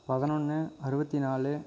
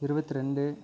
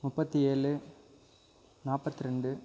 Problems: background sounds at intervals